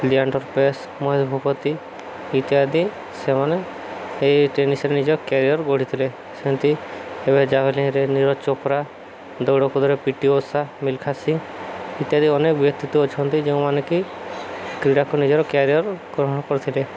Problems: constant background noise